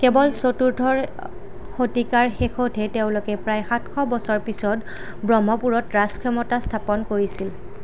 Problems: none marked